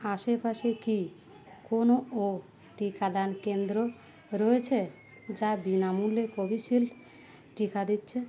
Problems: constant background noise